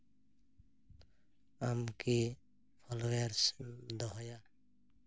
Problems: constant background noise